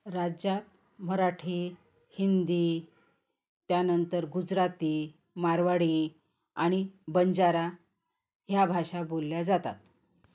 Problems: constant background noise, background conversations at intervals